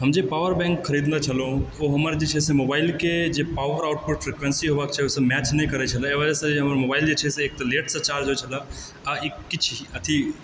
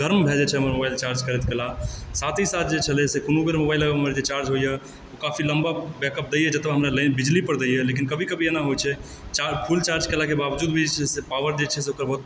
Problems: background sounds at intervals